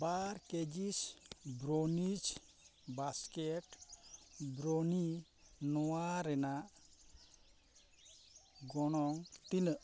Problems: constant background noise